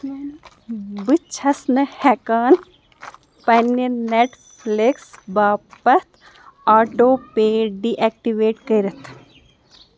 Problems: background sounds at intervals